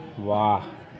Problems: none marked